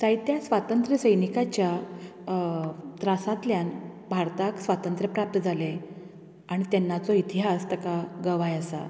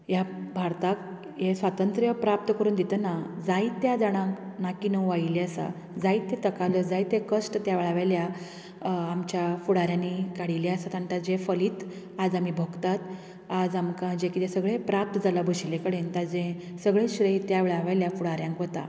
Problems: background sounds at intervals